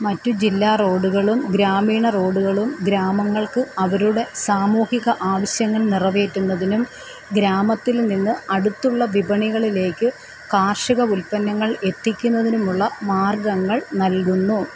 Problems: constant background noise